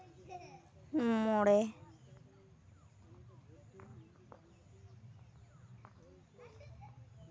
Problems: constant background noise, background conversations at intervals